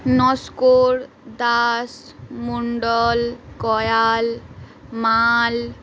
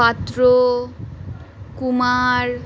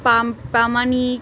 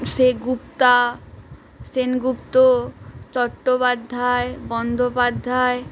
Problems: background conversations at intervals